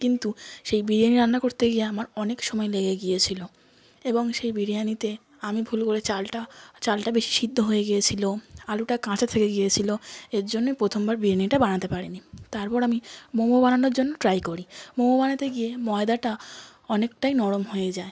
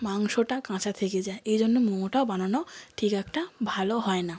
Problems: background sounds at intervals, background conversations at intervals